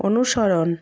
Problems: none marked